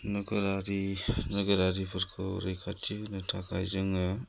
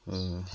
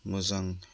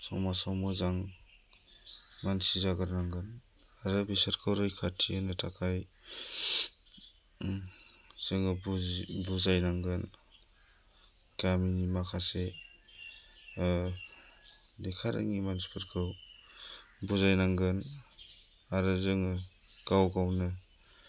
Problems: low volume